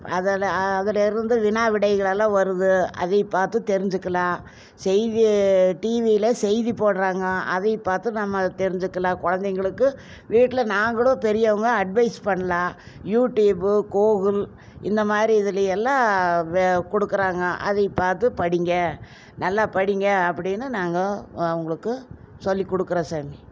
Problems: none marked